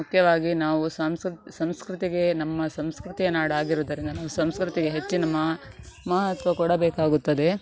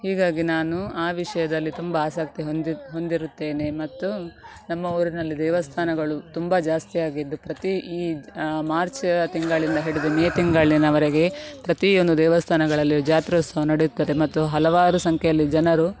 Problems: background sounds at intervals